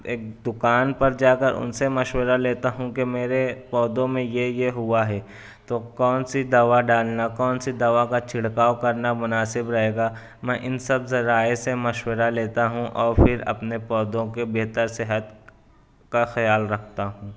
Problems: none marked